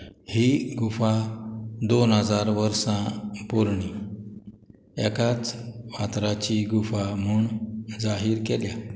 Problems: none marked